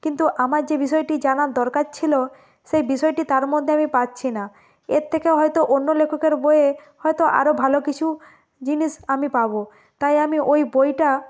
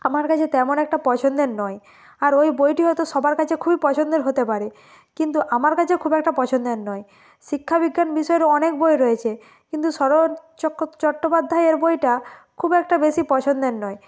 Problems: none marked